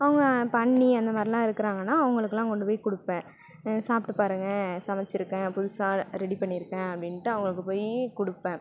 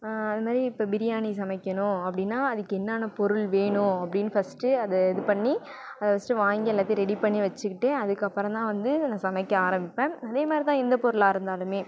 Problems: background sounds at intervals